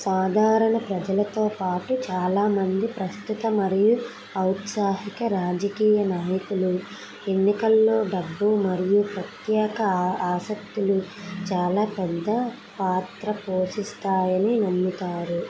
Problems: constant background noise